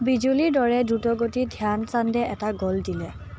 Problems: background sounds at intervals, background conversations at intervals